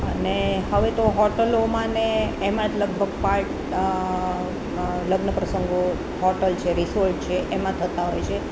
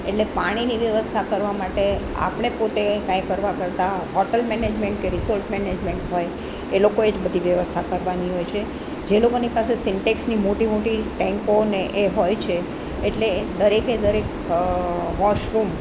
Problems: none marked